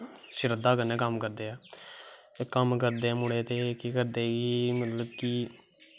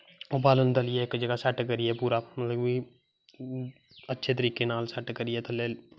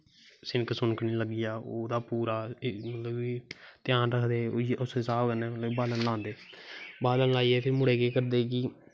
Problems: constant background noise